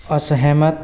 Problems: constant background noise